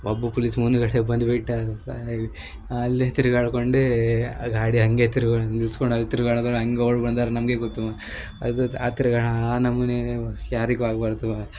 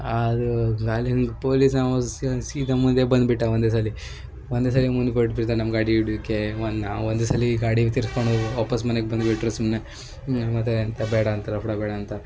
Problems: background sounds at intervals